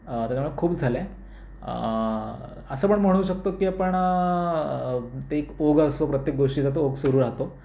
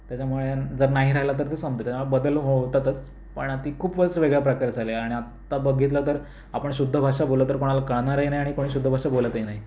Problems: none marked